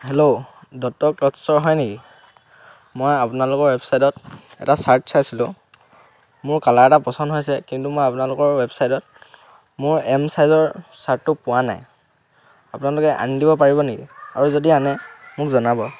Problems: none marked